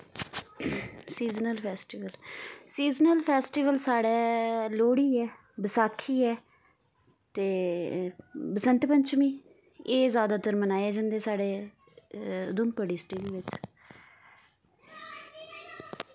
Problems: background sounds at intervals